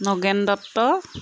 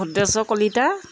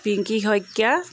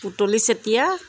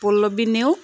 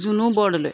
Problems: constant background noise